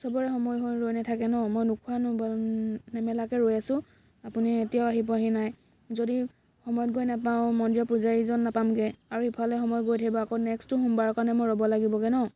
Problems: constant background noise, background conversations at intervals